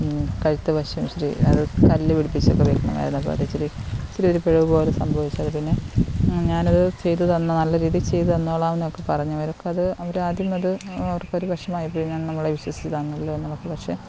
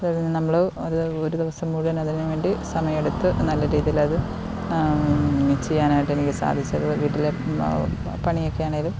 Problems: none marked